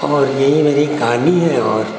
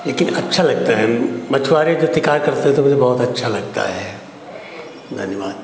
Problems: constant background noise